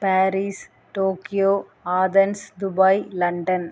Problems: constant background noise